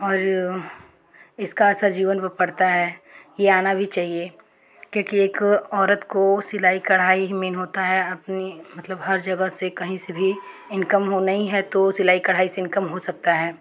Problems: background sounds at intervals